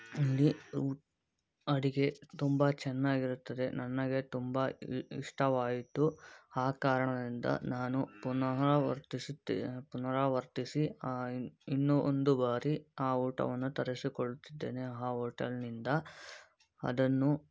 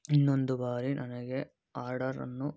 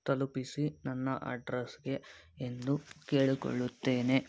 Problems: background sounds at intervals